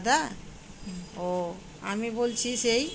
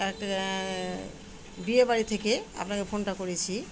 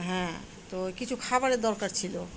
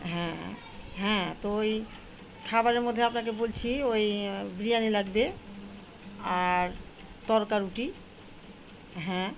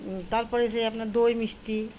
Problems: constant background noise, continuous background conversations